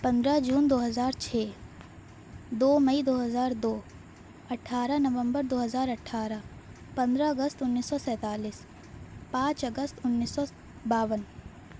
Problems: none marked